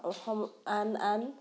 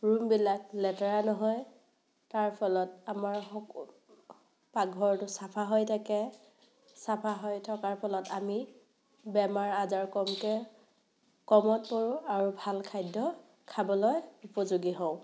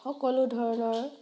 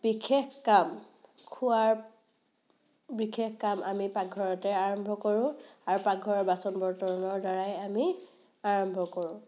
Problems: none marked